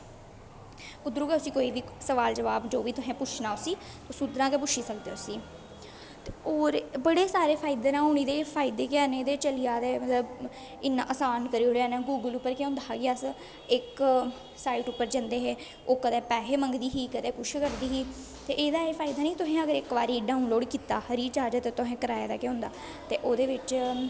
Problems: constant background noise, echo